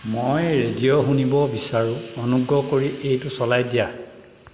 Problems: constant background noise